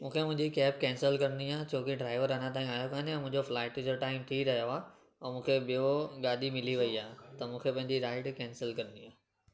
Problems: constant background noise, echo